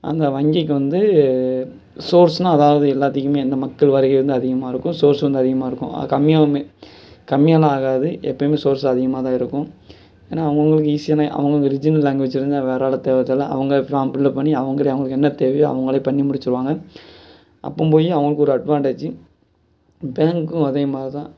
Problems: none marked